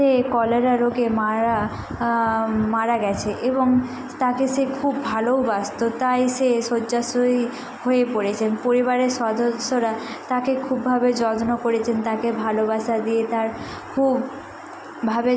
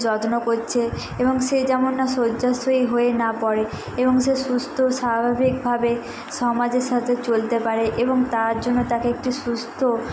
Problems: none marked